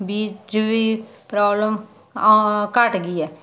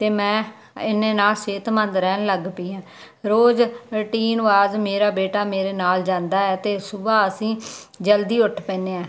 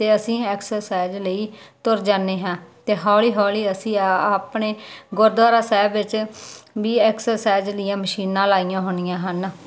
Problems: background conversations at intervals